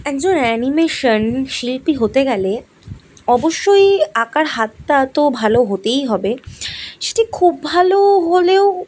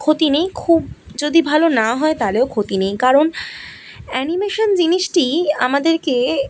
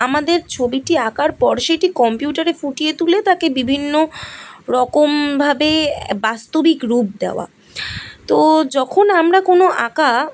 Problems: background sounds at intervals